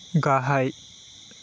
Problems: constant background noise